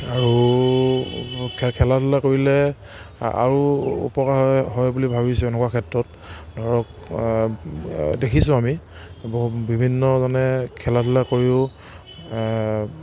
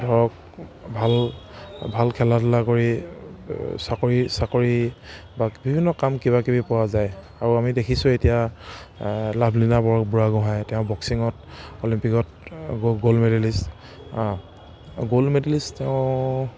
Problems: none marked